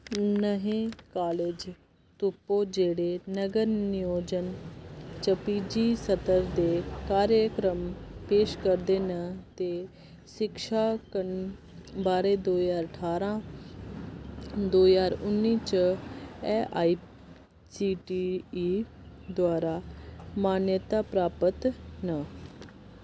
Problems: constant background noise